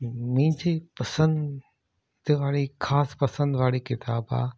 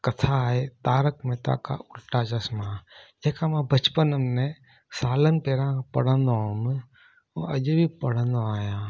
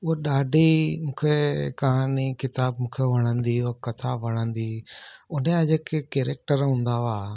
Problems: none marked